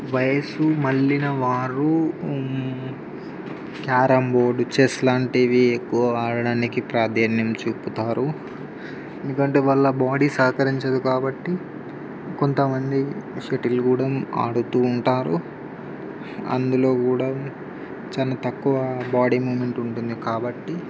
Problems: constant background noise